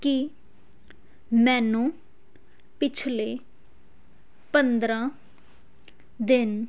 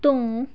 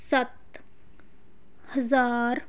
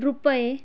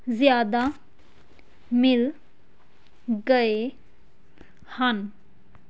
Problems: none marked